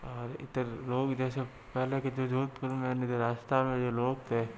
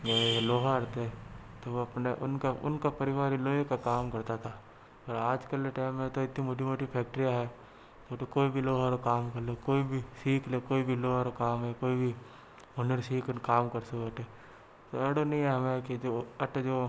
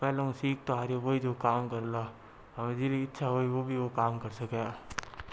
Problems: low volume